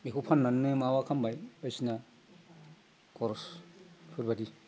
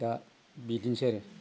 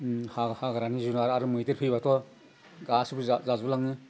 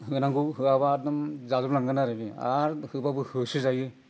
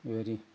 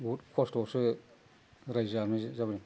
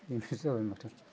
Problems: constant background noise